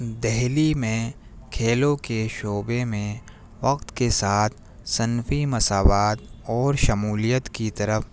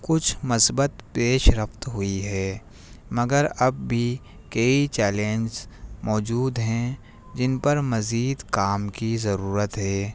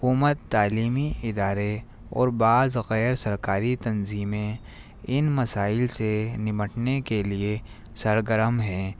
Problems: none marked